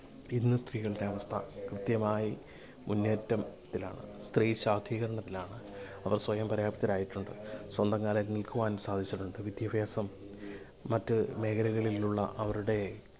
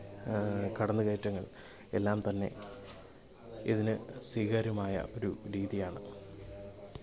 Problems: background sounds at intervals, background conversations at intervals